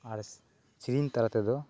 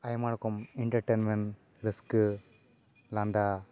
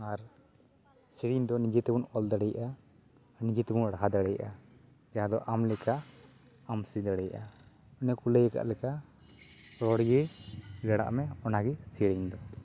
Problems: constant background noise